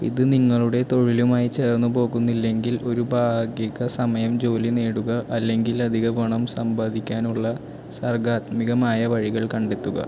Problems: constant background noise